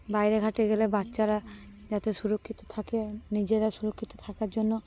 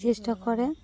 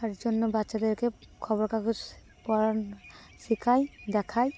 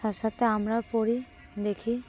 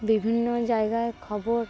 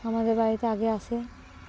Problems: constant background noise